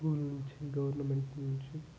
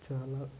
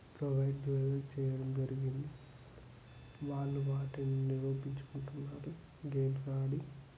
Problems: low volume